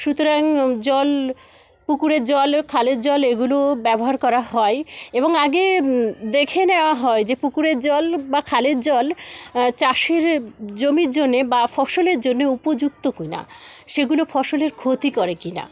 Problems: constant background noise, continuous background conversations